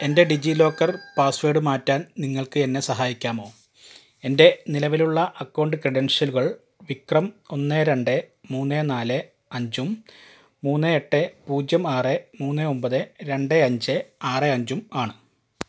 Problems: background sounds at intervals